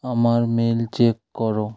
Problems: none marked